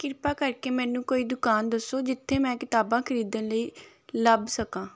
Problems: background sounds at intervals